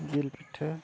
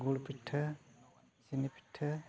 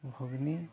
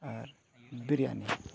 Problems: background sounds at intervals, background conversations at intervals